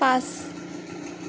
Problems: constant background noise